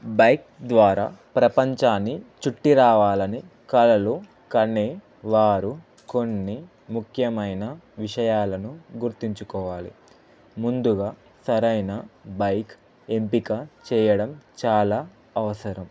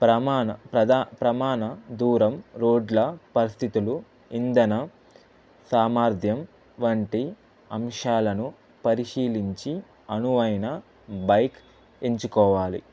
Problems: constant background noise